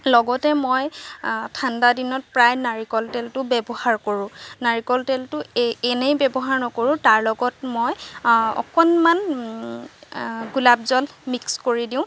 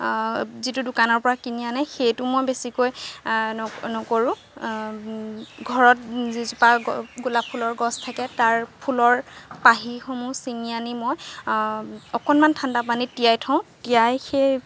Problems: none marked